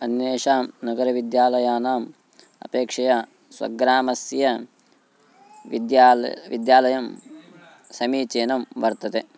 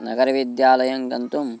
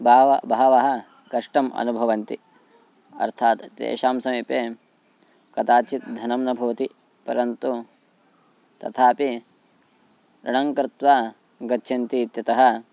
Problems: background sounds at intervals